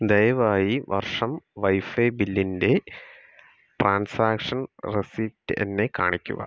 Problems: none marked